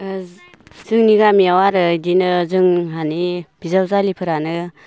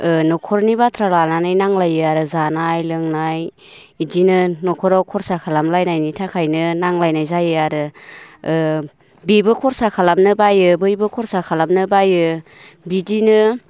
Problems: none marked